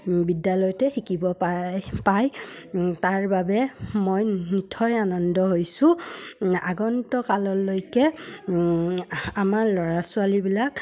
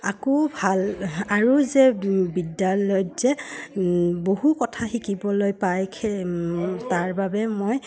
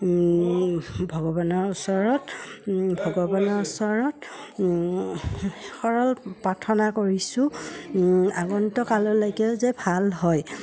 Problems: none marked